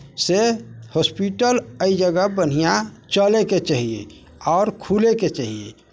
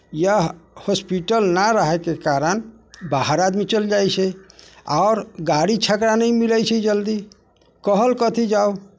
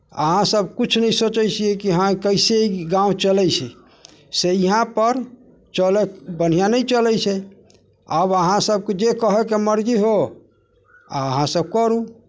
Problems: none marked